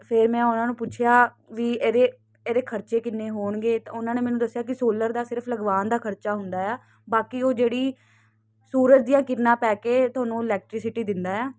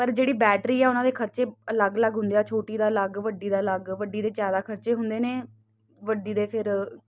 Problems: constant background noise